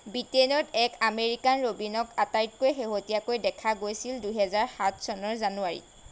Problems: constant background noise